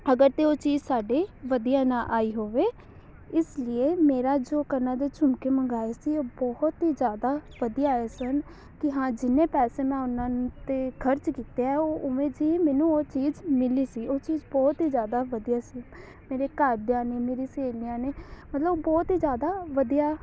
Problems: background sounds at intervals, background conversations at intervals